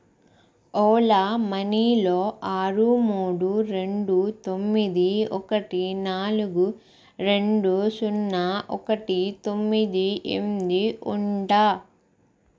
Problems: none marked